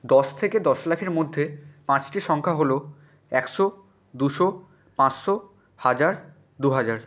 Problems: none marked